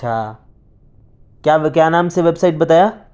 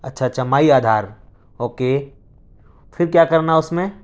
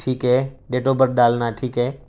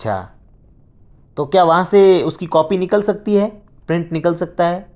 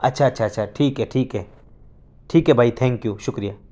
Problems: none marked